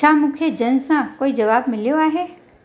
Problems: constant background noise